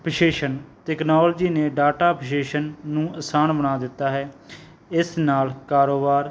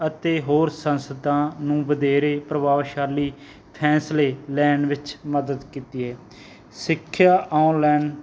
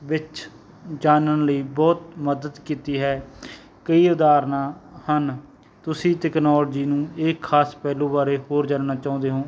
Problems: none marked